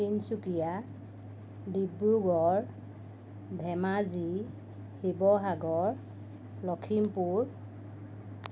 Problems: constant background noise